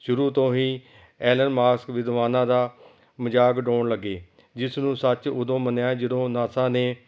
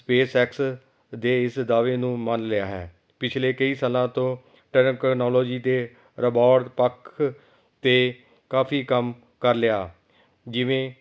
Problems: background sounds at intervals